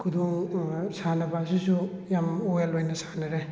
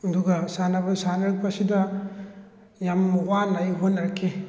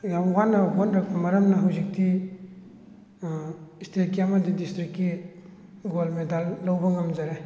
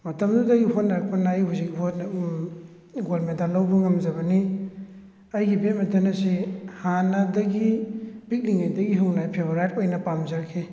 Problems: background sounds at intervals